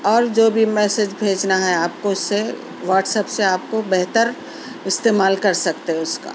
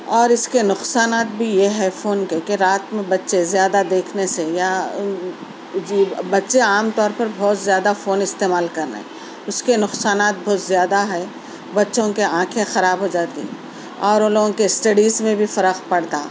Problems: constant background noise, background conversations at intervals